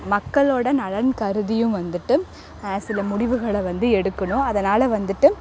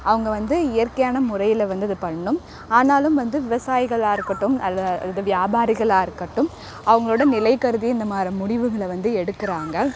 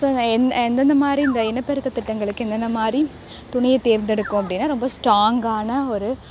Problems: constant background noise